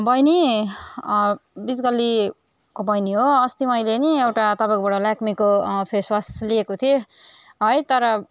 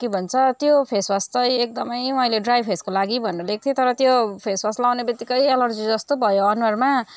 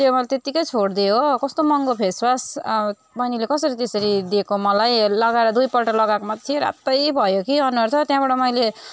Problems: background sounds at intervals